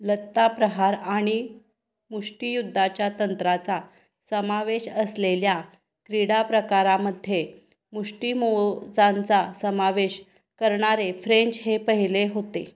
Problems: background sounds at intervals